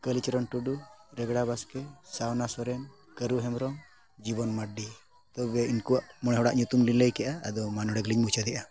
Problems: none marked